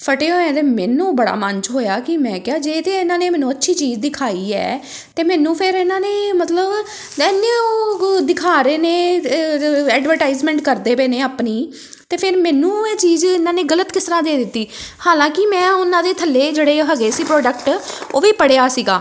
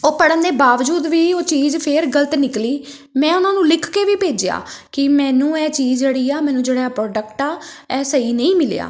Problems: none marked